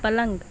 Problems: none marked